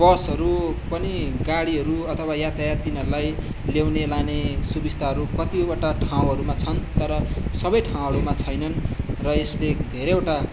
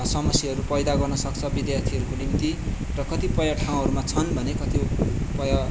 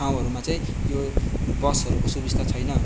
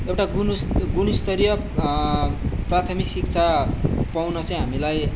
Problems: constant background noise, background conversations at intervals